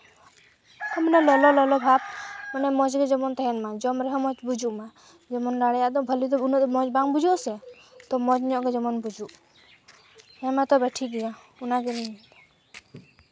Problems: constant background noise